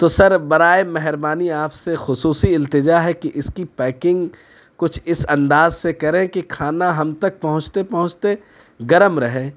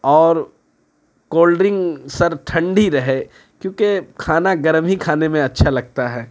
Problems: constant background noise